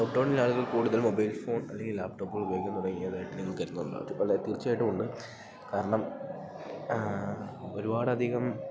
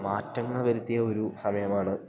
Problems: background sounds at intervals